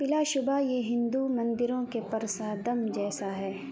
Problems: constant background noise